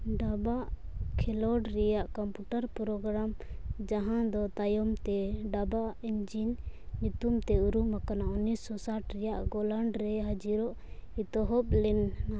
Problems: background sounds at intervals